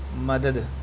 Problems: constant background noise